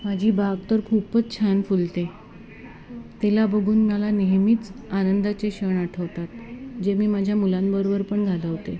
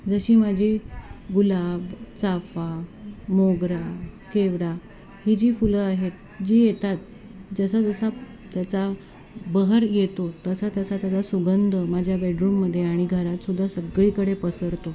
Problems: constant background noise, continuous background conversations